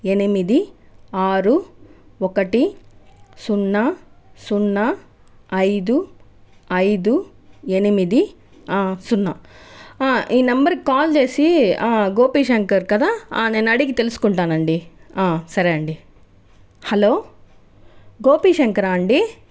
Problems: background conversations at intervals